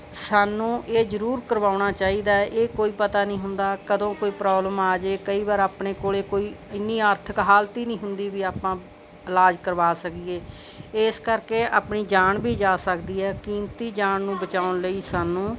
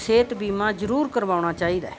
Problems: background sounds at intervals